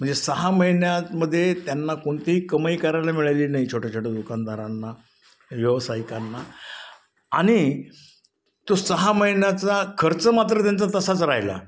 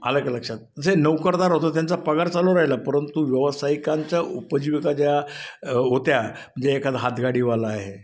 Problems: background sounds at intervals, echo